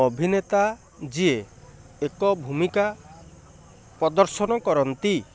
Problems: constant background noise